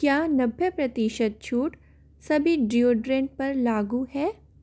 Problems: constant background noise